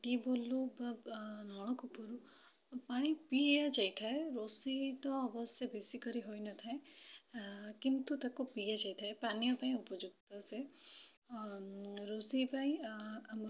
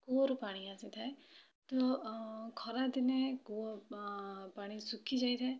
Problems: low volume